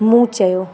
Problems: constant background noise, echo